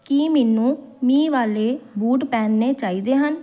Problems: none marked